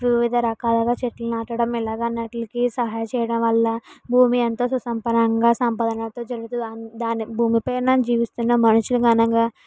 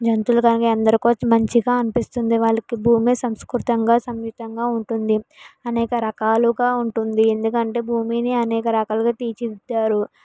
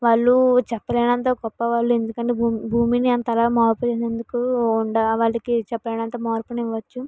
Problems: background conversations at intervals